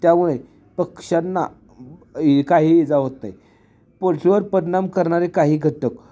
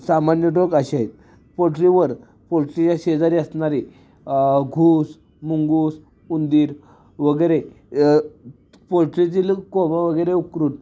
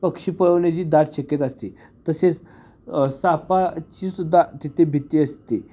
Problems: none marked